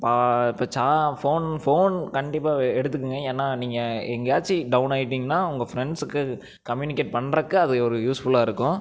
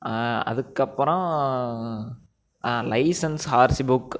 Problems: none marked